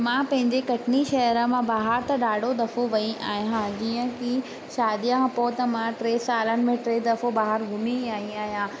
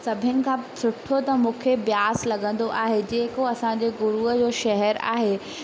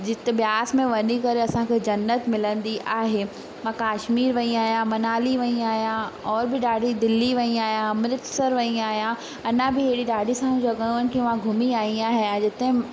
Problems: constant background noise, echo